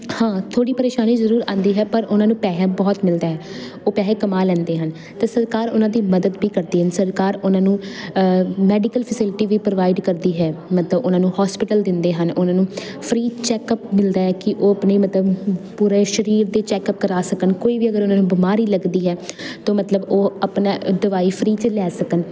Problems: none marked